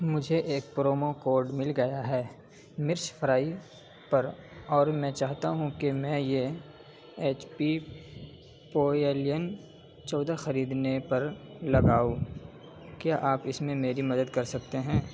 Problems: background sounds at intervals, low volume